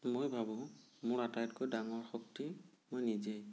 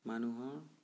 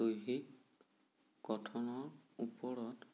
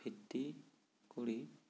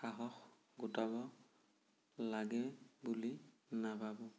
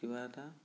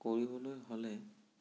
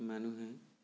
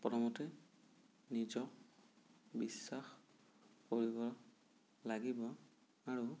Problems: low volume